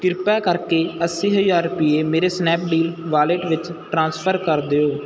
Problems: none marked